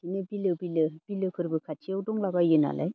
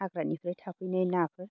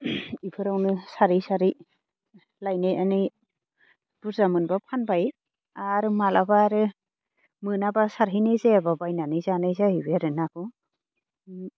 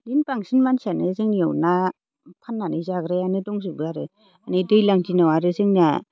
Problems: constant background noise